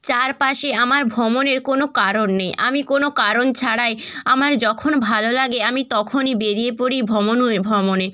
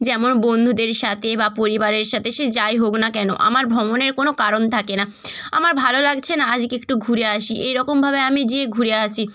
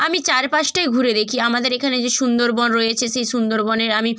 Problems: none marked